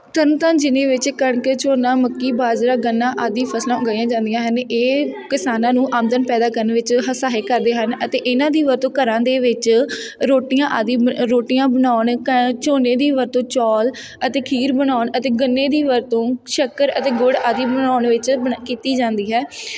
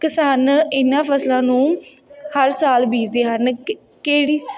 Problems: background sounds at intervals, background conversations at intervals